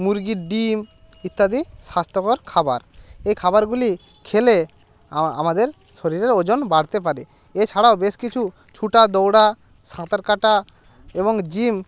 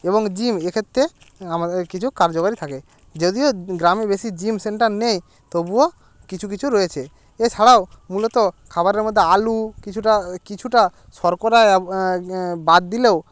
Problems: constant background noise